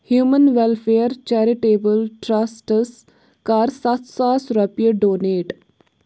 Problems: background sounds at intervals